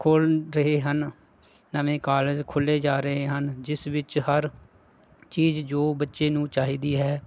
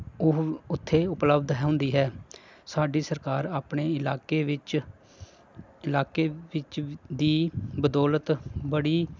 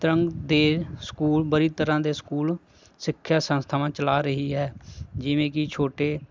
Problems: constant background noise